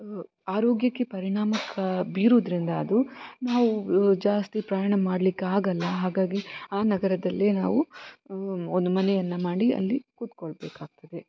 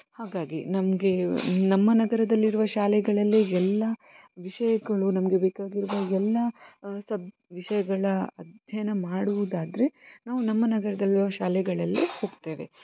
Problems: constant background noise